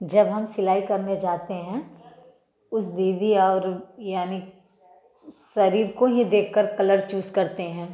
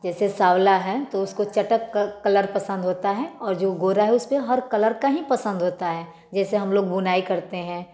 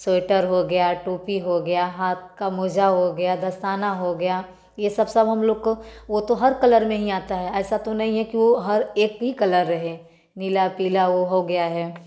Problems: background sounds at intervals, background conversations at intervals, echo